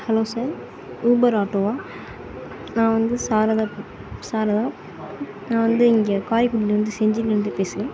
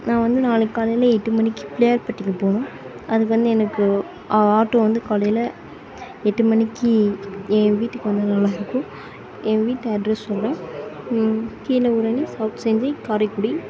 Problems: background conversations at intervals